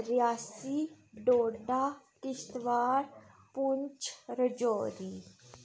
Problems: none marked